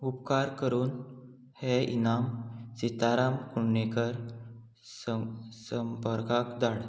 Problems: none marked